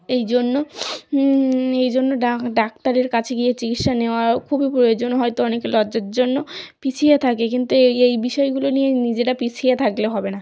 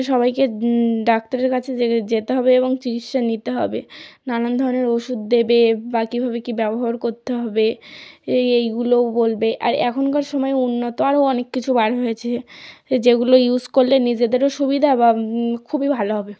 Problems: none marked